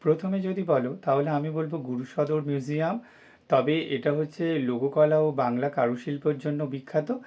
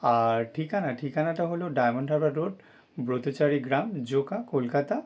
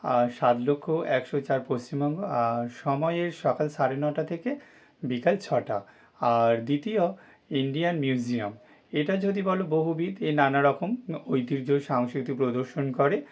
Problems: none marked